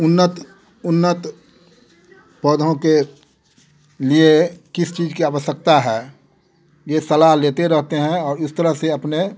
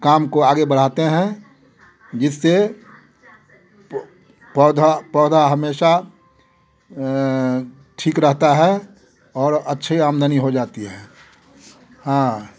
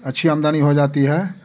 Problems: none marked